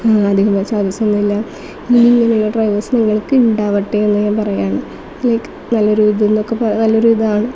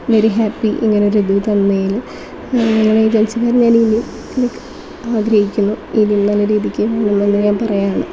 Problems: constant background noise